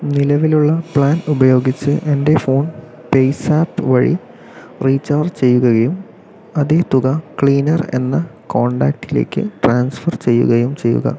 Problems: none marked